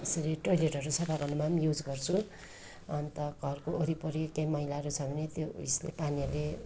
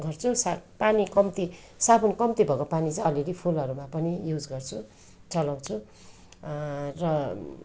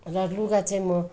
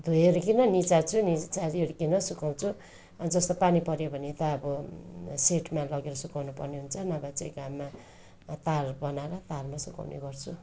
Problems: none marked